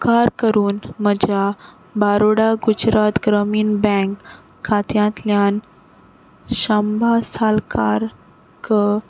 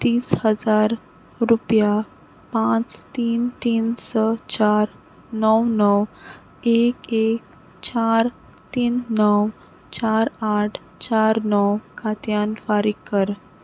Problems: none marked